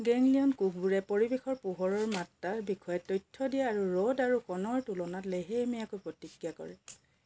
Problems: background sounds at intervals